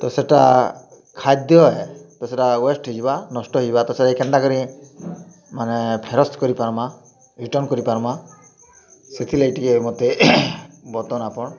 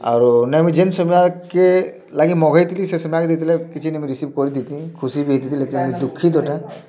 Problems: constant background noise, continuous background conversations